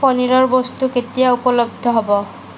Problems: constant background noise